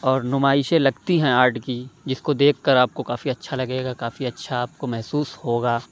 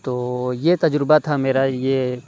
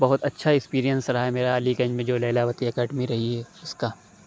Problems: background sounds at intervals